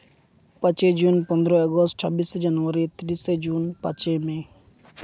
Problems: constant background noise